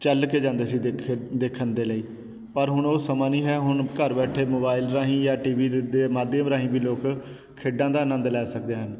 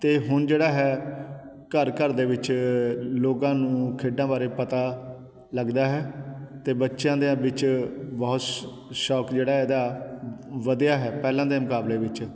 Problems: none marked